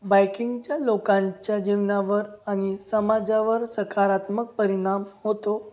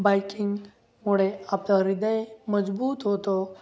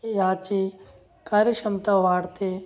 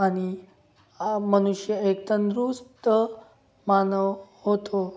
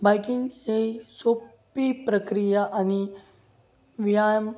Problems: none marked